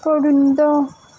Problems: constant background noise, low volume